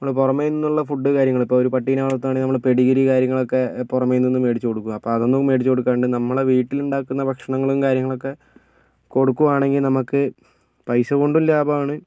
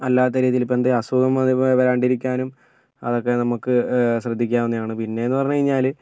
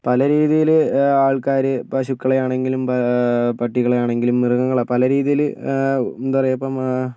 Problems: none marked